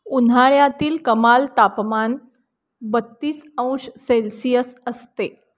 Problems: background sounds at intervals